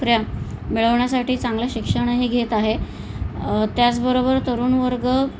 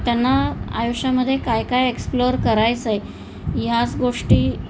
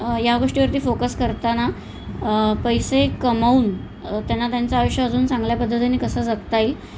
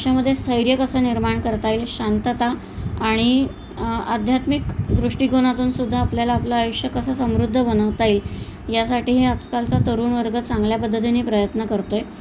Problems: constant background noise